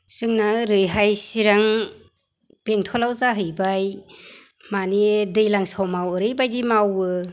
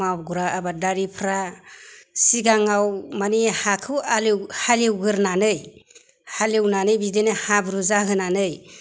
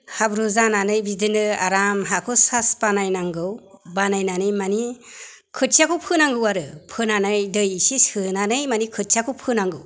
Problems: none marked